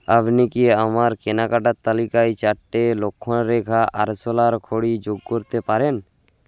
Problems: background sounds at intervals